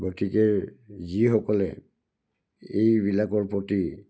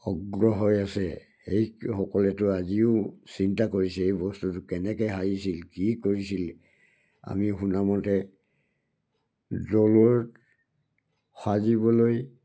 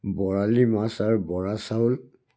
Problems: none marked